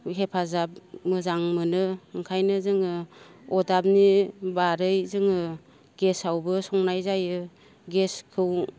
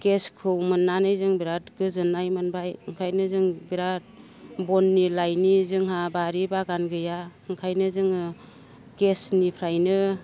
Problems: none marked